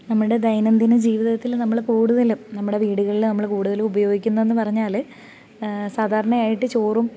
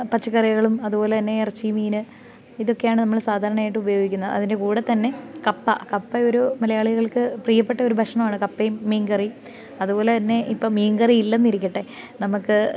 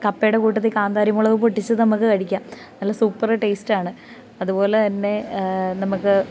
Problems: background sounds at intervals